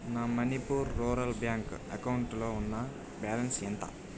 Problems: constant background noise